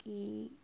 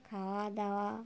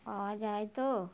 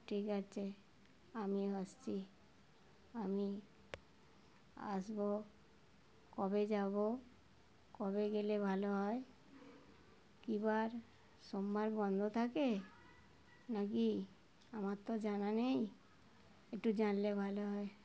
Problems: constant background noise, continuous background conversations